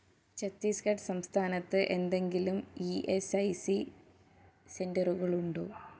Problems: low volume